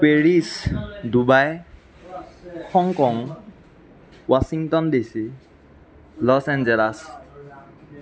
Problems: continuous background conversations